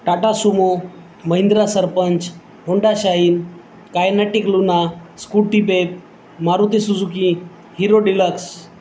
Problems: constant background noise